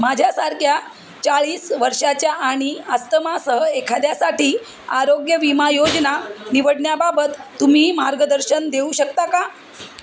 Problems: constant background noise, background conversations at intervals